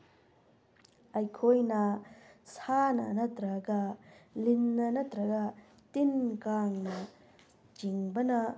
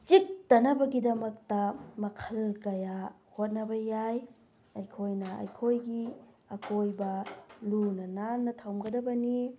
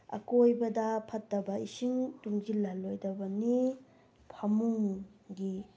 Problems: none marked